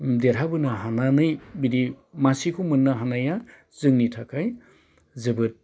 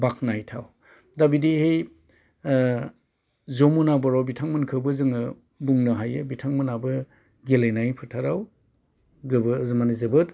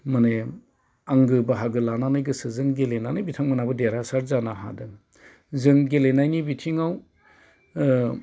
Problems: constant background noise